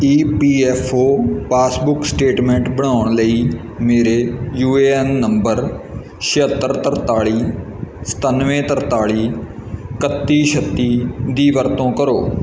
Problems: none marked